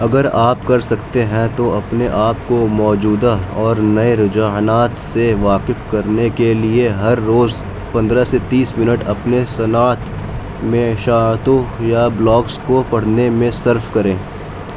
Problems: constant background noise